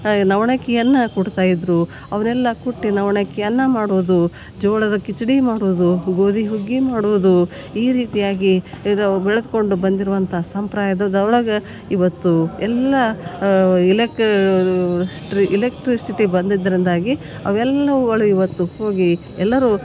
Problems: none marked